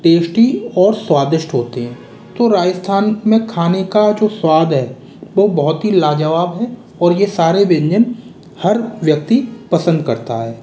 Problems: none marked